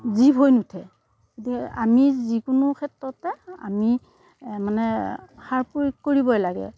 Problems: none marked